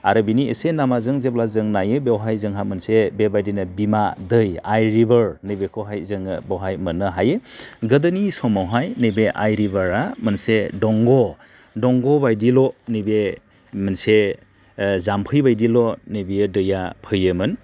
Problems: none marked